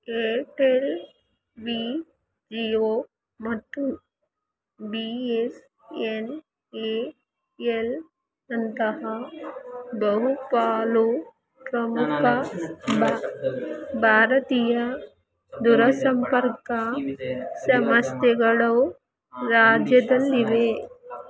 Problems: background conversations at intervals